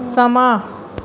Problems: background sounds at intervals